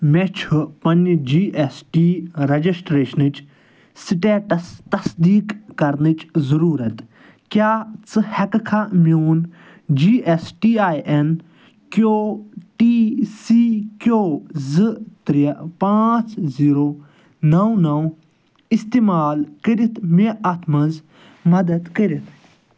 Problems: none marked